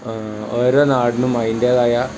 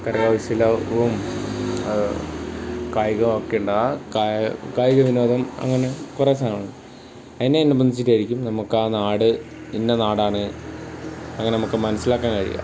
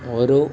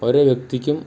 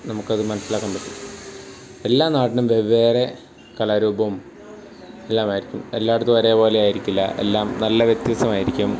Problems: background sounds at intervals